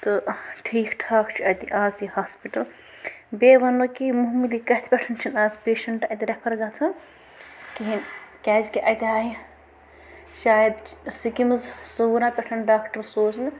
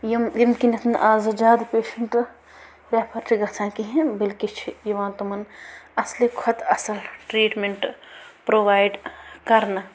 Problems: constant background noise